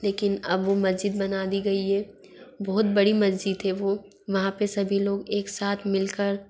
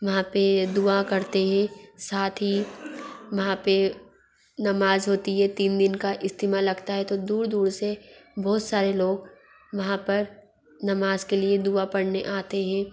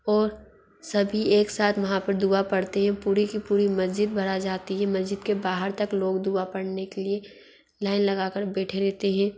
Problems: constant background noise, background conversations at intervals